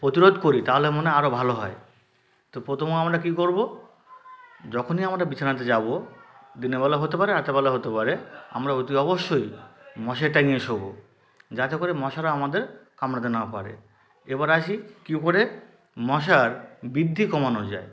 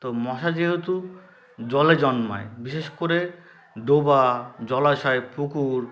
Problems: continuous background conversations